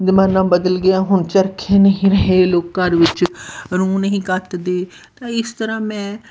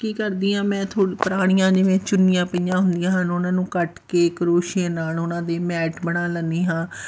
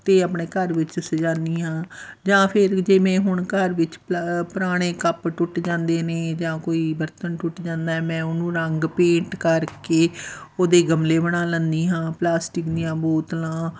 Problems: background sounds at intervals, background conversations at intervals